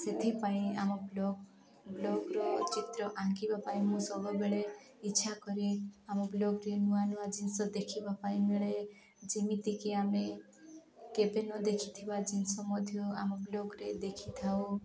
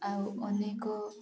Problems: continuous background conversations